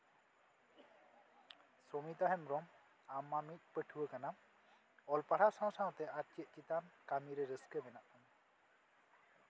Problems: constant background noise